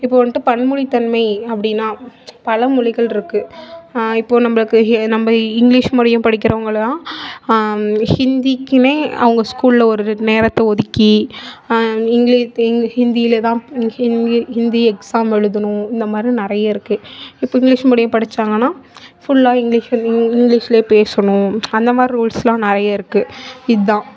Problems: continuous background conversations